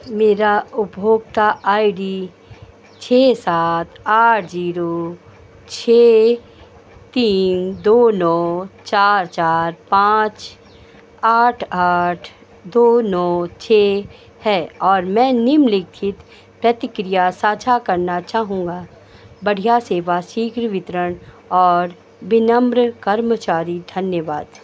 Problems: none marked